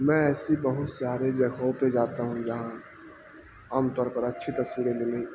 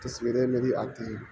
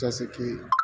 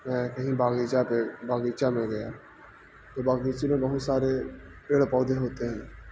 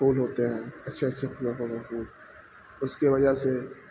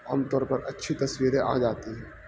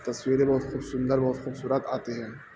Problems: constant background noise